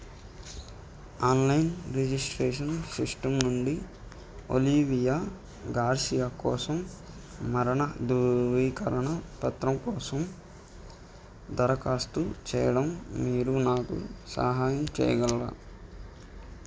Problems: none marked